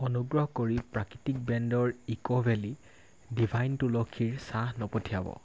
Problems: constant background noise